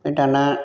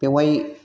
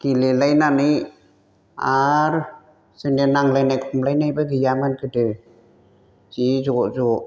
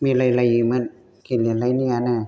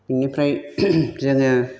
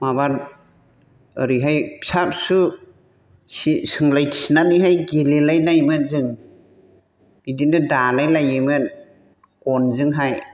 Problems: constant background noise